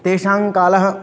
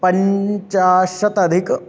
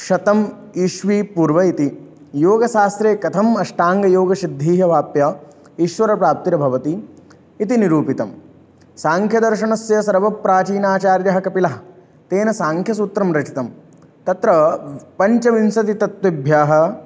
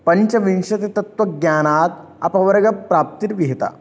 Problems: none marked